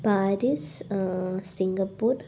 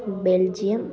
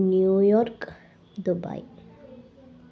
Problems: background conversations at intervals